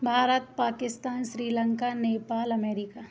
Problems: constant background noise